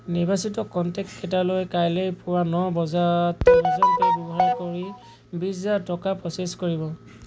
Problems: background sounds at intervals